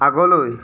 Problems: constant background noise